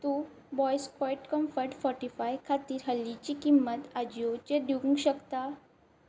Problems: background sounds at intervals